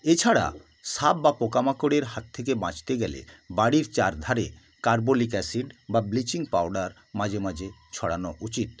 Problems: constant background noise